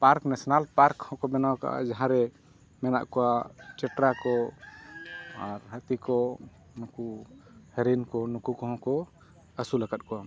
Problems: constant background noise